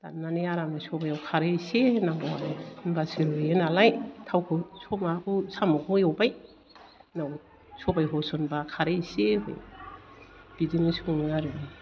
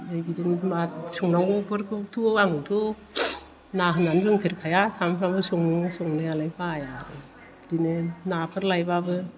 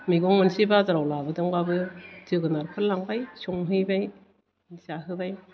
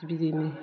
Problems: low volume